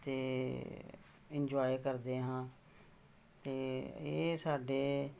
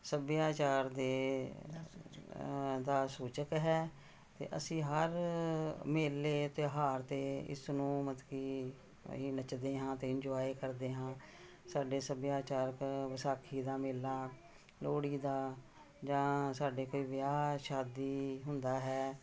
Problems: background conversations at intervals